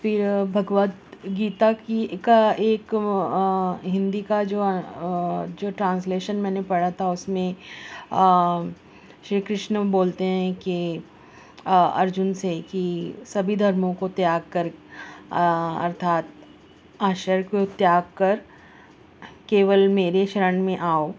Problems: constant background noise